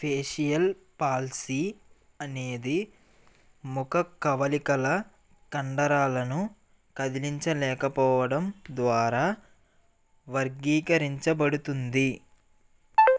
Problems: background sounds at intervals